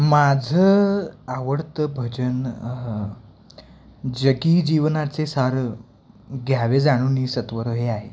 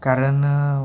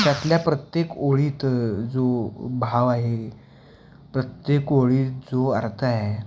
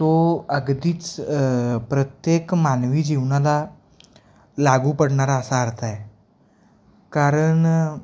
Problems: constant background noise